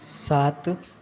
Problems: constant background noise